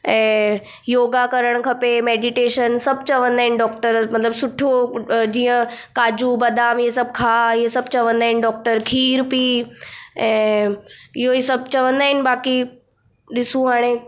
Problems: none marked